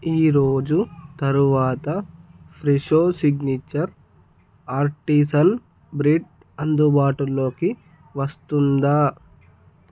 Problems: none marked